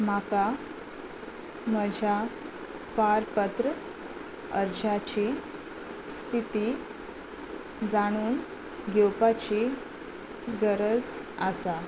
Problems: constant background noise